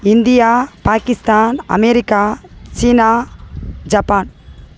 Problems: constant background noise